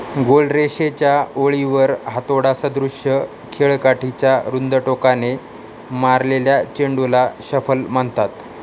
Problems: constant background noise